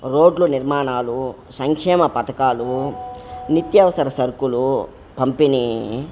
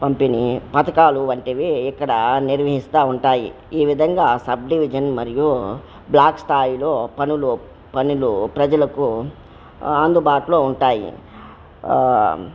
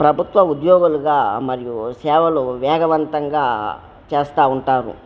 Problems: background sounds at intervals